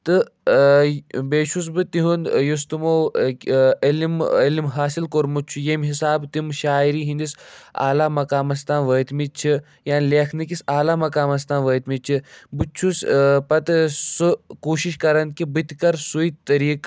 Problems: none marked